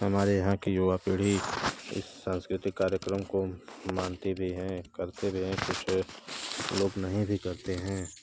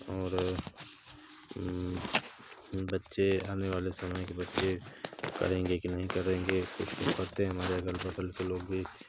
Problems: constant background noise